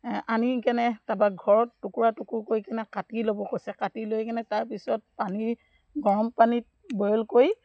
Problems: background sounds at intervals